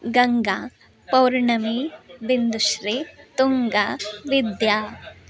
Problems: background conversations at intervals